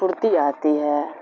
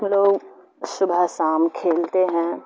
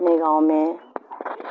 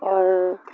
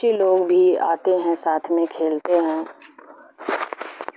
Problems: constant background noise